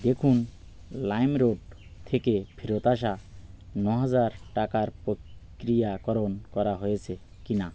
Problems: none marked